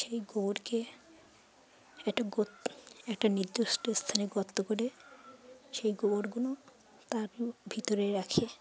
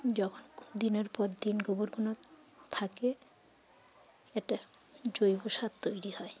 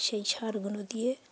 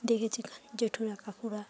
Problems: constant background noise, low volume